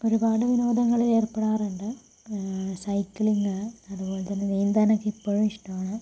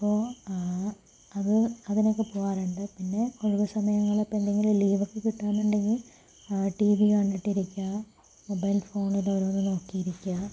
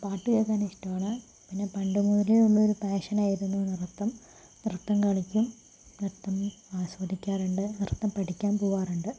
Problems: low volume